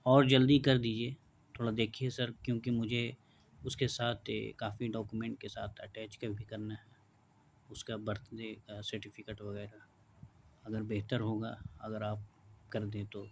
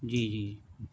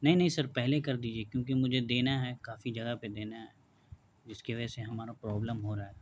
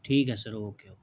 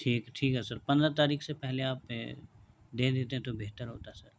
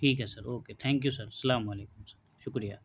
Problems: constant background noise